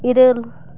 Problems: none marked